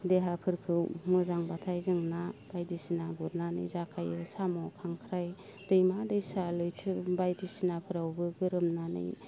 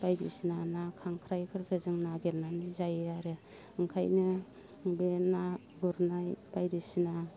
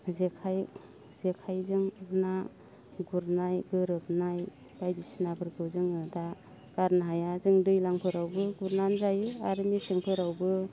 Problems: constant background noise